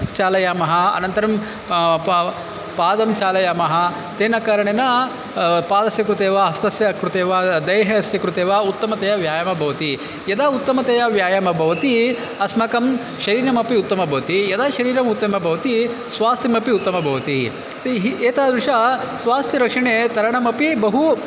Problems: constant background noise